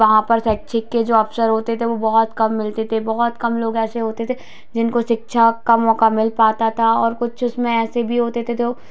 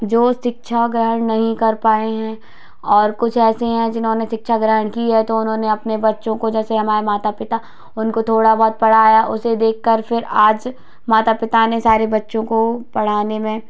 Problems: none marked